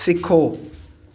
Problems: echo